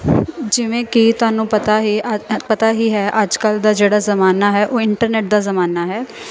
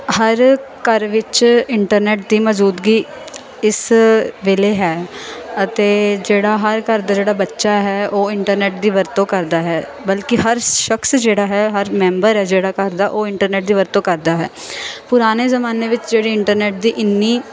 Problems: constant background noise